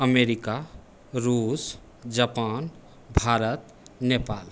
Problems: constant background noise